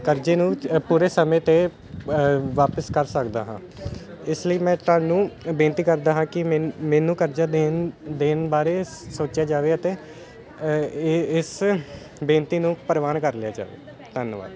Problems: background sounds at intervals